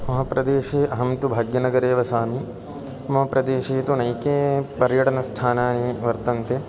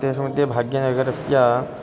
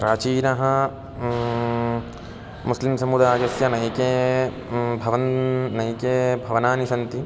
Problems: constant background noise, continuous background conversations